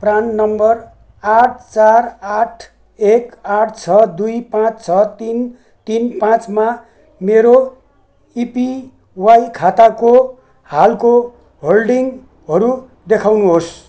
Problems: background sounds at intervals